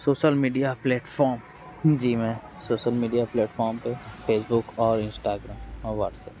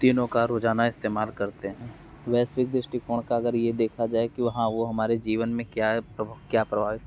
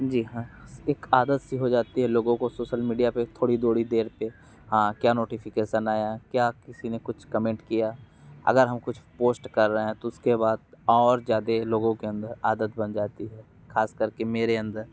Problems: constant background noise